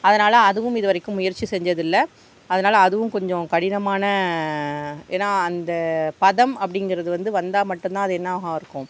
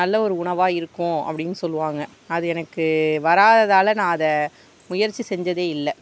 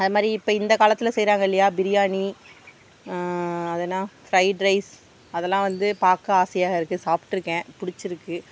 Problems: none marked